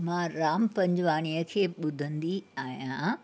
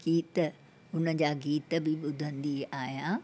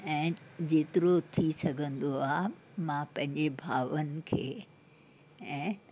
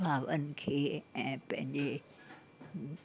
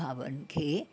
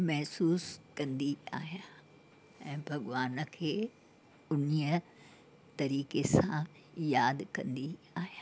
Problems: constant background noise, background conversations at intervals